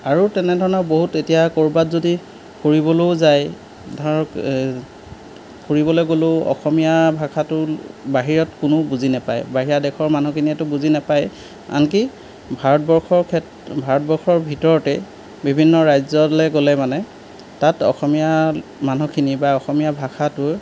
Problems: background sounds at intervals